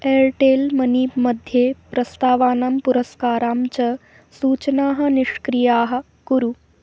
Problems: constant background noise